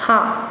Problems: constant background noise, background conversations at intervals